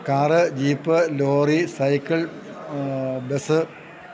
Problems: none marked